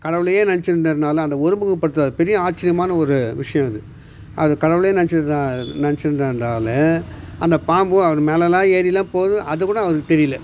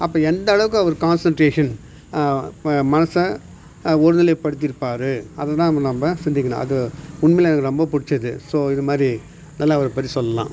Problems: none marked